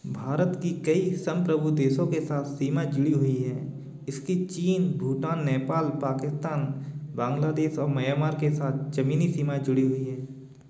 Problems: constant background noise, background conversations at intervals